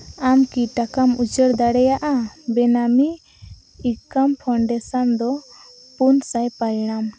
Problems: constant background noise